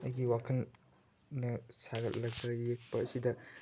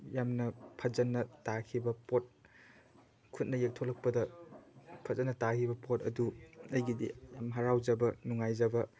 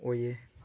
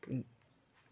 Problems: none marked